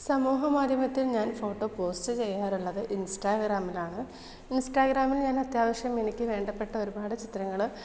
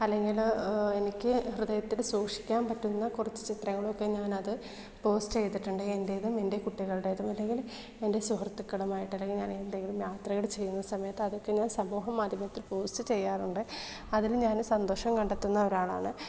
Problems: low volume